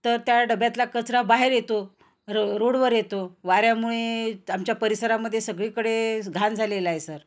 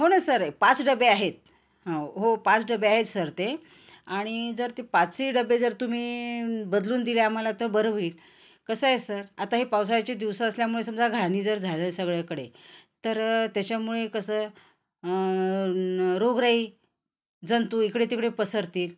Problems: constant background noise